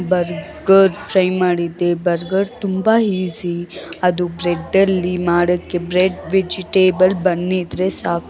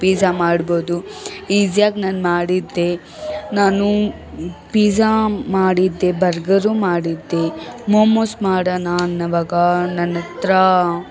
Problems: background sounds at intervals, background conversations at intervals